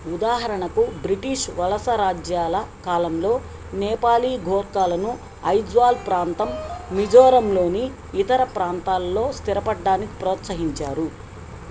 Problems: constant background noise